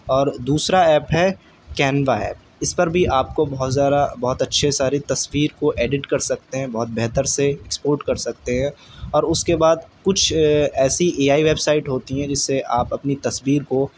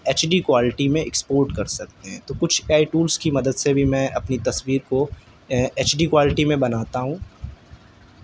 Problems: none marked